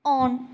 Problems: low volume